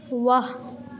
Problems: none marked